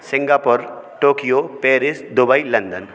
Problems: constant background noise